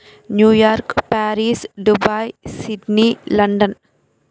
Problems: none marked